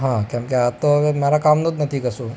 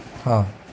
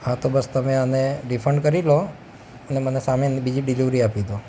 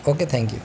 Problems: constant background noise